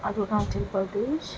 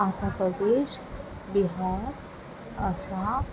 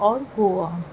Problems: constant background noise